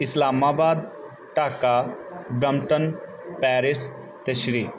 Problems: background sounds at intervals